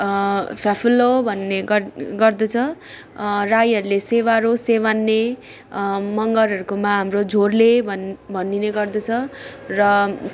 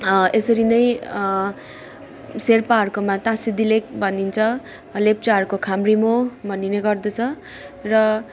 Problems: none marked